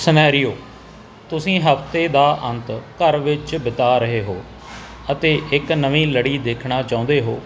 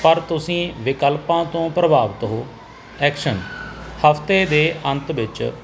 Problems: none marked